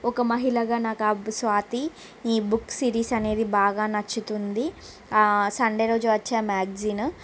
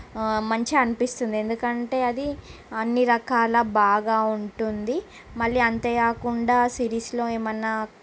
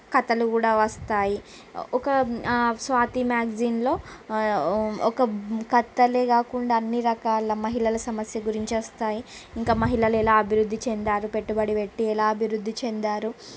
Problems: constant background noise